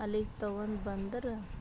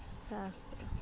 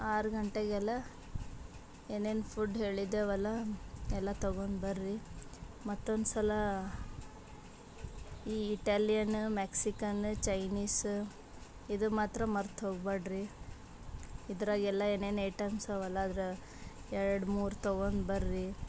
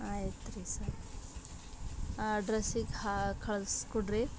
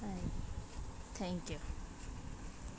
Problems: background sounds at intervals